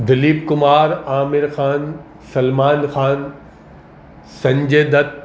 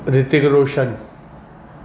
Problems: constant background noise